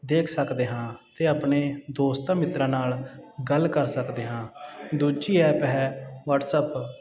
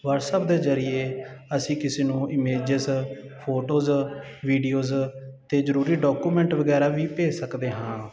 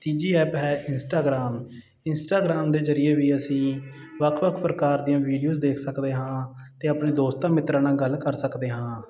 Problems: none marked